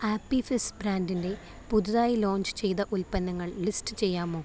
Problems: background sounds at intervals